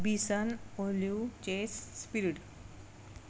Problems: background sounds at intervals